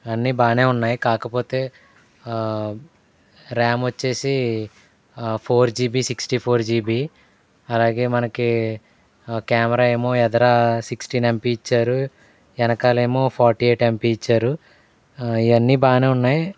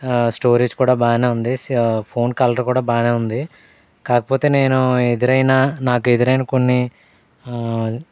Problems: none marked